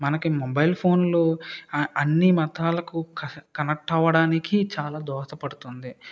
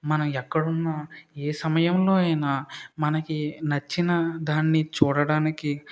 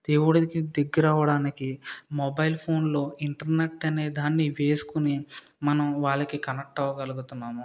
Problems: none marked